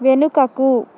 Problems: constant background noise